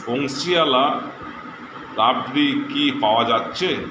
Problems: constant background noise